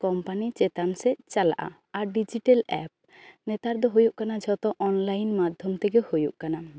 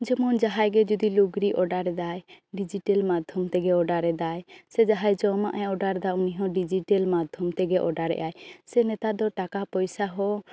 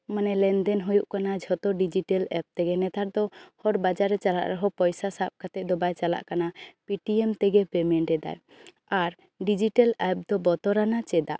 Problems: none marked